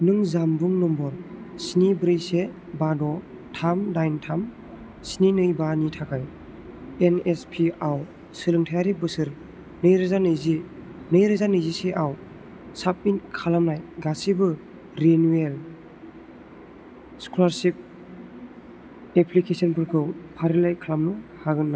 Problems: none marked